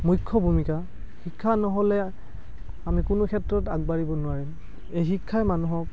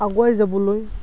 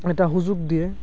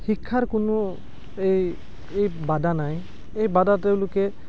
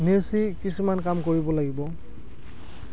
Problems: background sounds at intervals